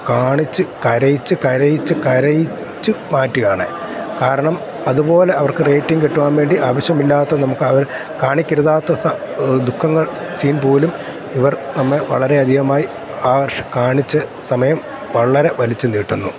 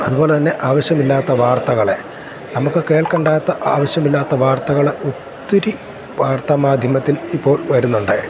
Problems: constant background noise